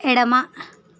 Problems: none marked